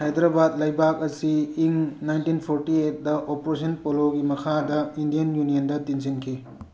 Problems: background sounds at intervals